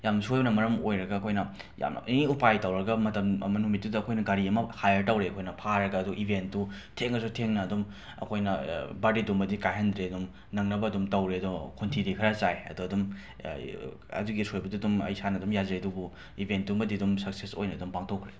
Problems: background sounds at intervals